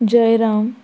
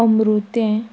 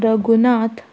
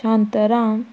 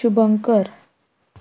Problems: none marked